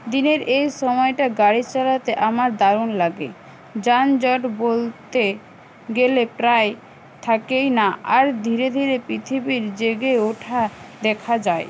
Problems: constant background noise